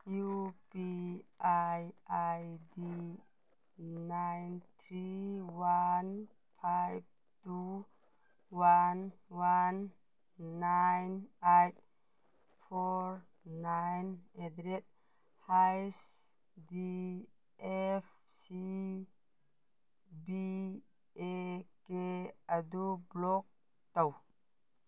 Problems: none marked